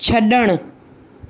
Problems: none marked